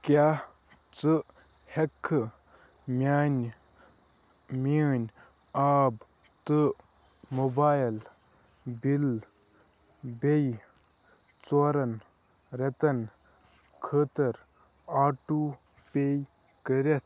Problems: none marked